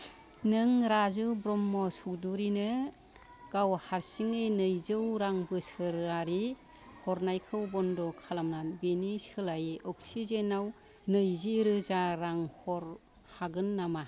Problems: continuous background conversations